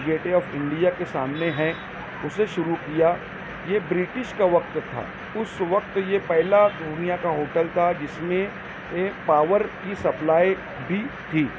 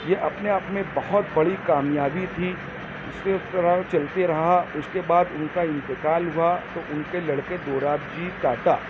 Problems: constant background noise, low volume